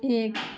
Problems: none marked